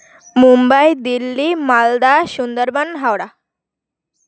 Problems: constant background noise